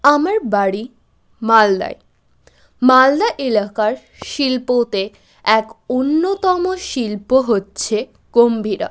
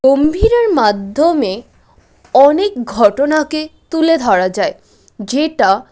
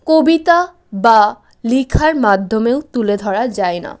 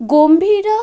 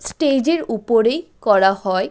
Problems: none marked